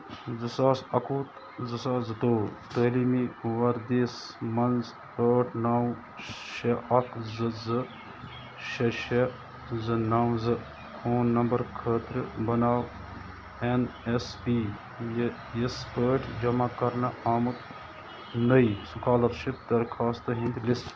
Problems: constant background noise